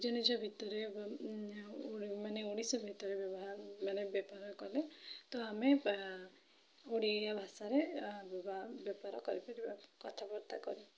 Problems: low volume